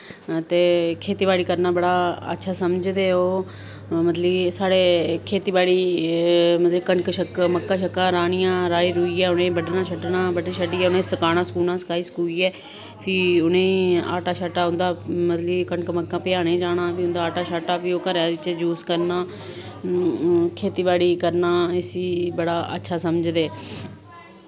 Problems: none marked